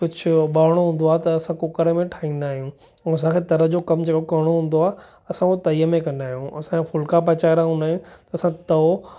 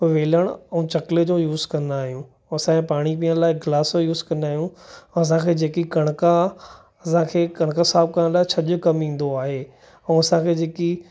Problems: none marked